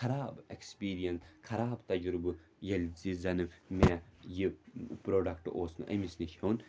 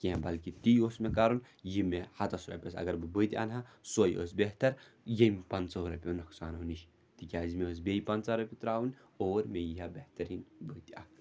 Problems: background sounds at intervals